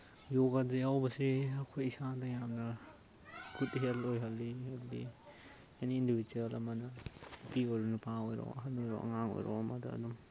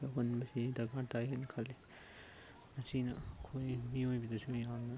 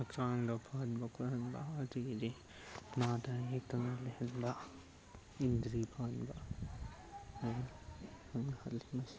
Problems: background sounds at intervals, low volume